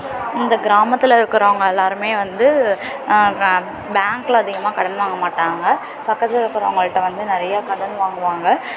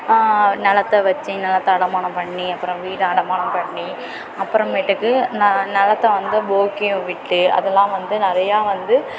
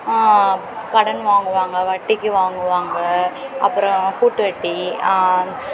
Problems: constant background noise